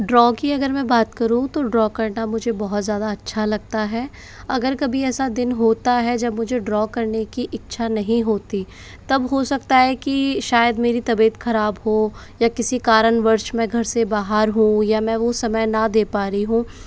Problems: background sounds at intervals